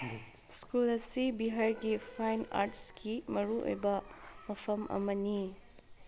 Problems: background sounds at intervals